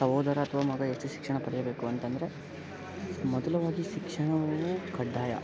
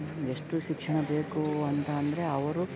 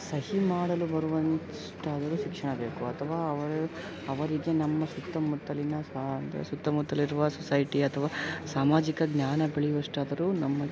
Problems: background sounds at intervals